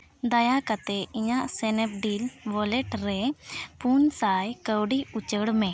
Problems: none marked